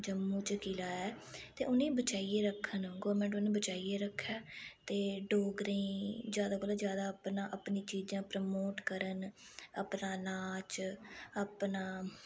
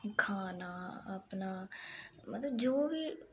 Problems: background sounds at intervals